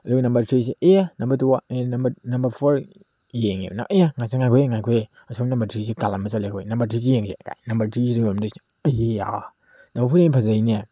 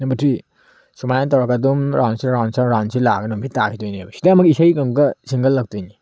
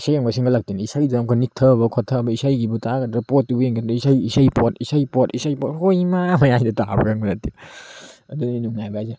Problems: background sounds at intervals